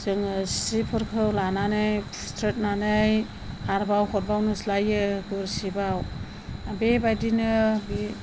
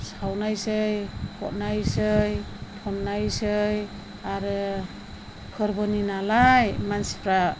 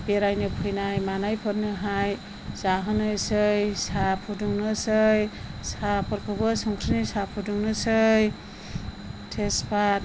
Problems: none marked